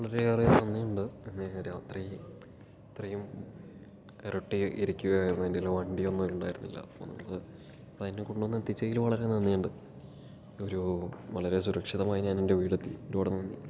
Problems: low volume